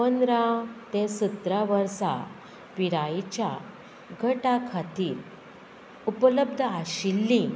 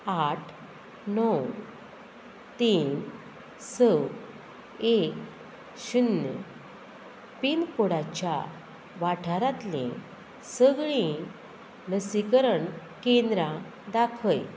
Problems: none marked